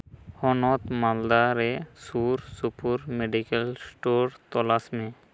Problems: none marked